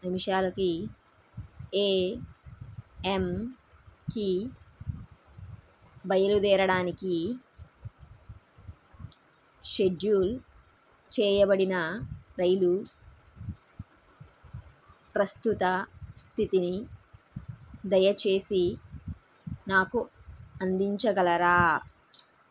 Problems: background sounds at intervals